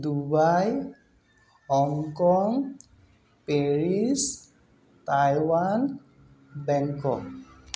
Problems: background sounds at intervals